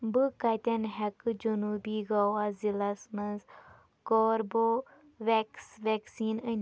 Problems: background sounds at intervals